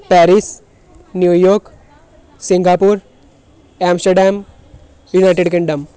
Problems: background sounds at intervals